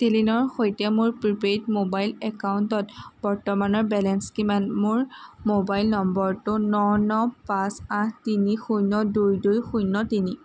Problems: constant background noise